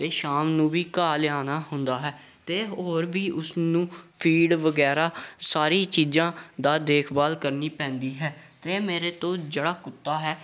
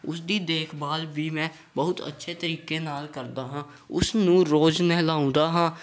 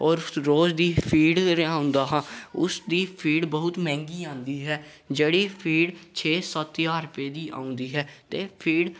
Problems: background conversations at intervals